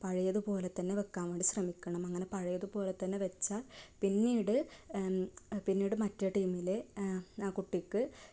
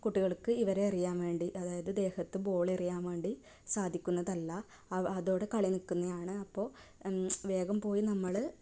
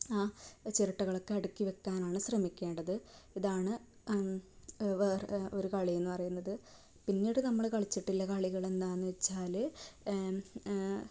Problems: none marked